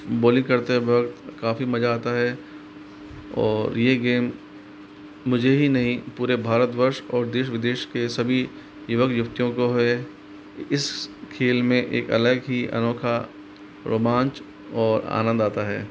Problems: constant background noise